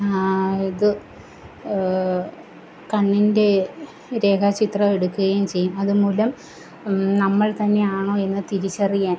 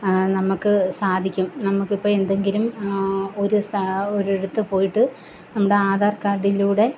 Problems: constant background noise